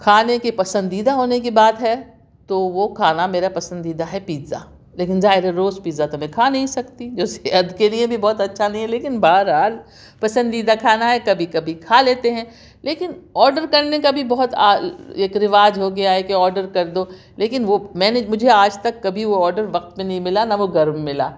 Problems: none marked